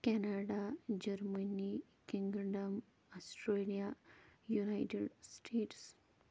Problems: low volume